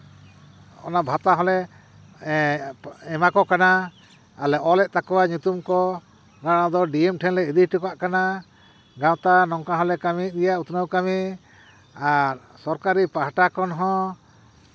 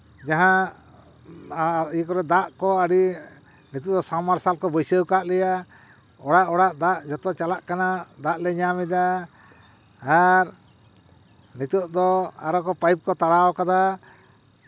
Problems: none marked